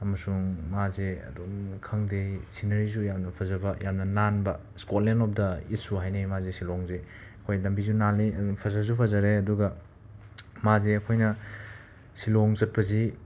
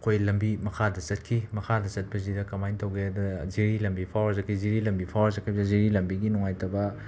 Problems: background sounds at intervals